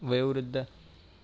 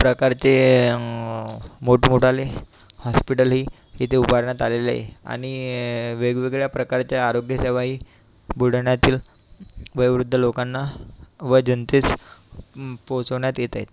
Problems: constant background noise